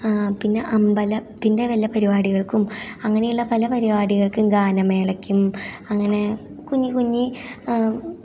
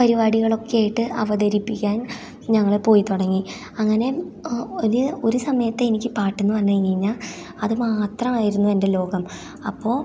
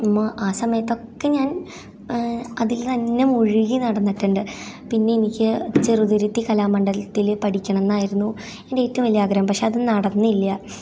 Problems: none marked